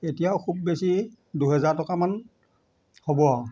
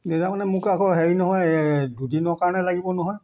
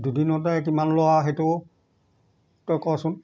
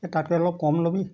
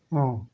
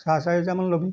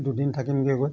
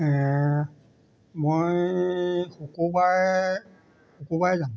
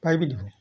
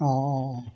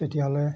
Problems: background sounds at intervals